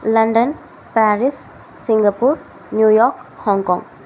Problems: constant background noise